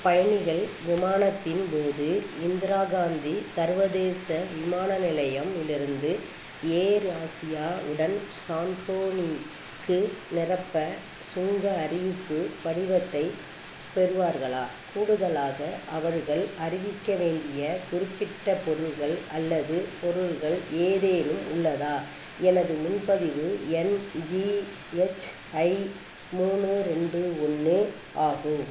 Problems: constant background noise